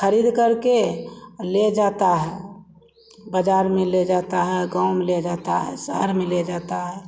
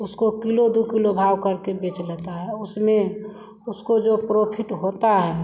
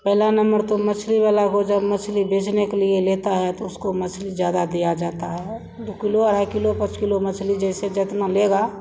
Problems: background sounds at intervals